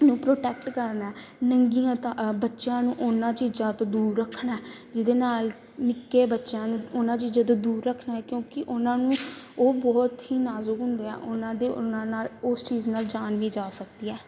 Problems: none marked